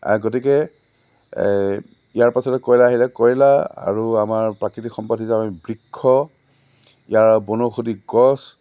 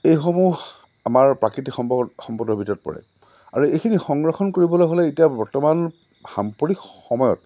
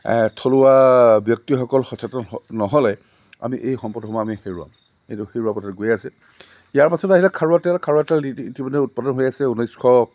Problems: none marked